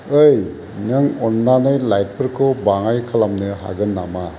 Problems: constant background noise